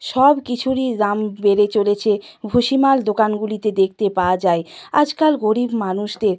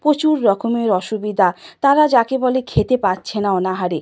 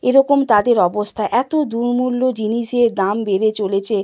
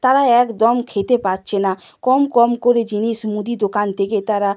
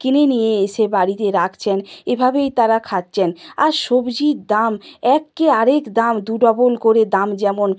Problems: constant background noise